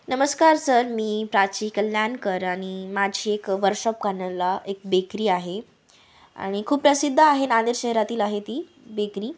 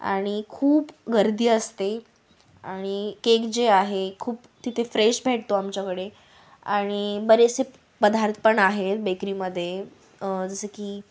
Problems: background sounds at intervals